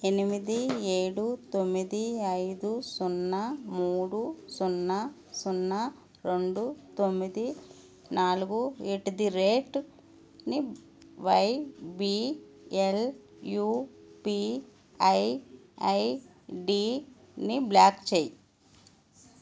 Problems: constant background noise